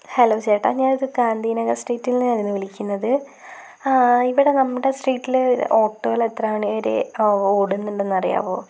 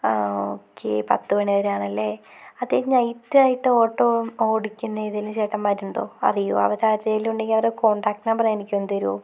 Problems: constant background noise